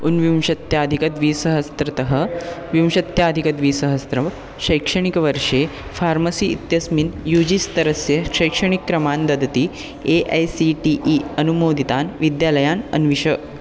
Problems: constant background noise, continuous background conversations